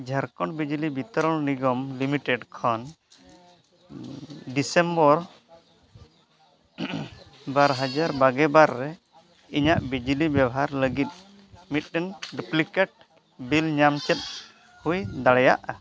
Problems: none marked